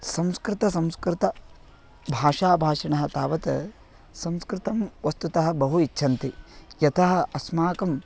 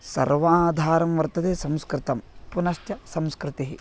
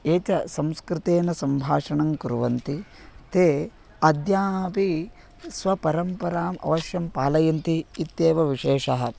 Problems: constant background noise